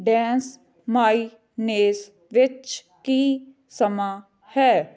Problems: continuous background conversations